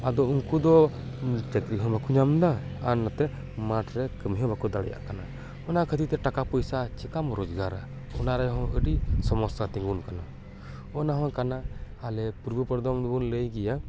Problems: background conversations at intervals